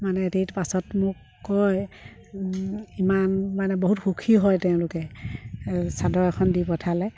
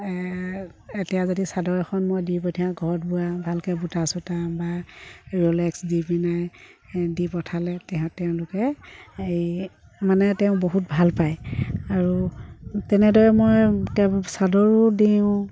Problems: background sounds at intervals